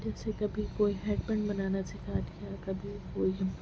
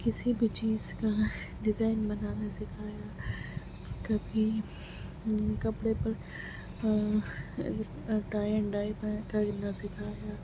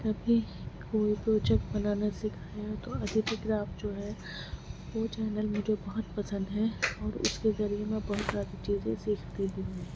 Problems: constant background noise, low volume